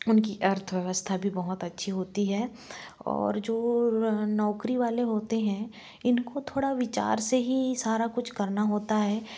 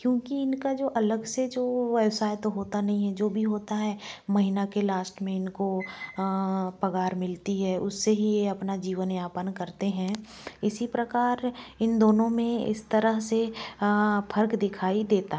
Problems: background sounds at intervals